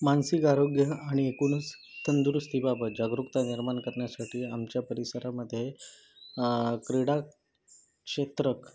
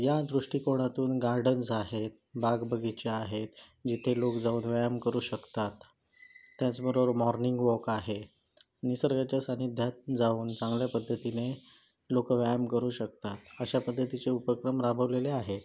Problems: background sounds at intervals